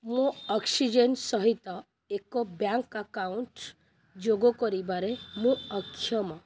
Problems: none marked